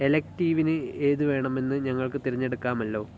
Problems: low volume